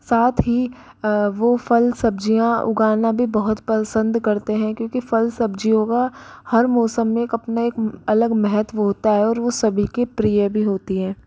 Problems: none marked